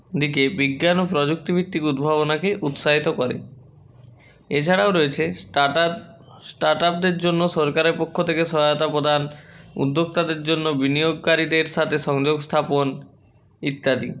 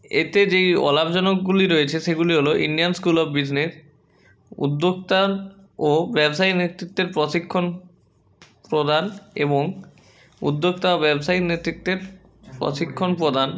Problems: constant background noise, background conversations at intervals